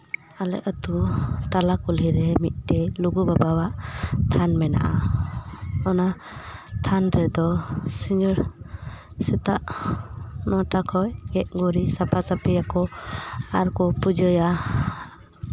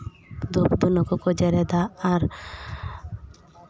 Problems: constant background noise